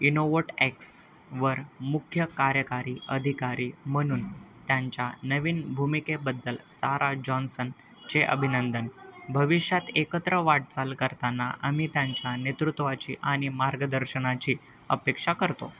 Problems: none marked